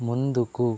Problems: low volume